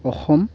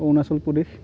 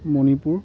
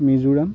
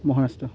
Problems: none marked